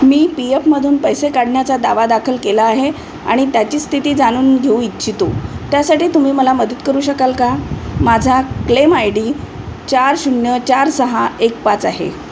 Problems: constant background noise